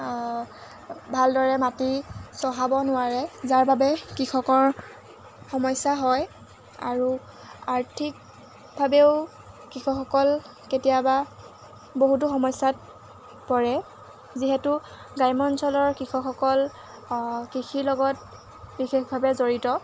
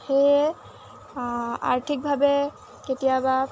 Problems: none marked